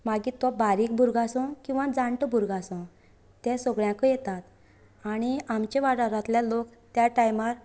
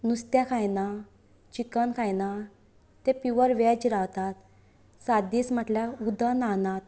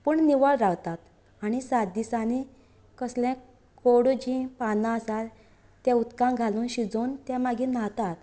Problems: none marked